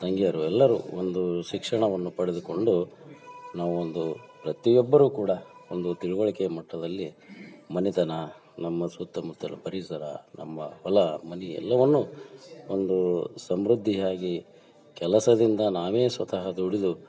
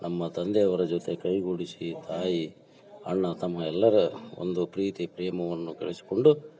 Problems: background conversations at intervals